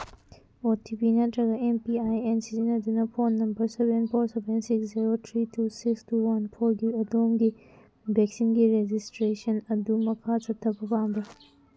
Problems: background sounds at intervals